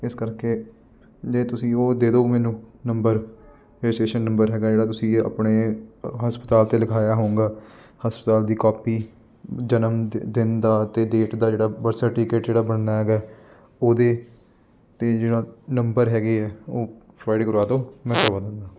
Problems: none marked